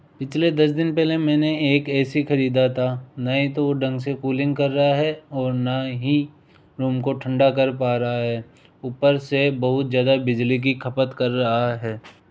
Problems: background sounds at intervals